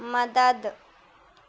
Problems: none marked